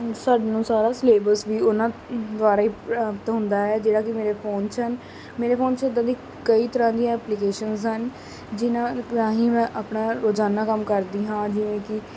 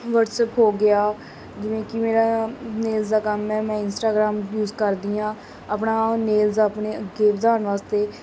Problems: constant background noise